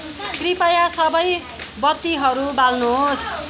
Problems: background sounds at intervals